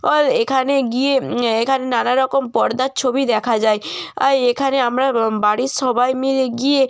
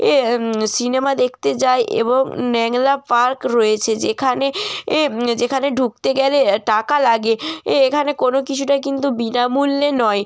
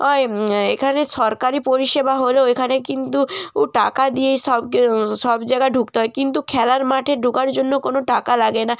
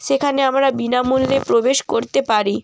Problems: background sounds at intervals